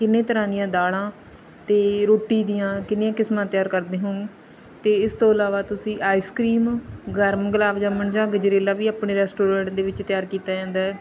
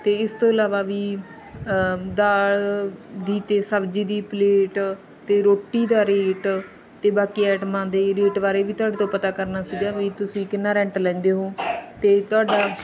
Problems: background sounds at intervals, background conversations at intervals